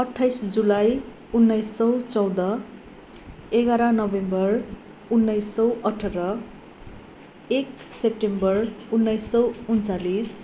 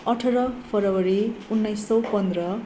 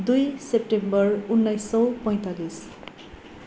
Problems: constant background noise